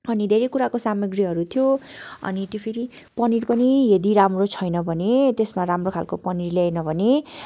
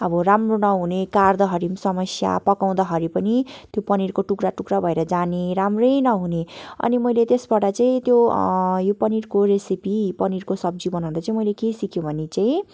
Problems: background sounds at intervals